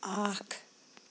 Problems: constant background noise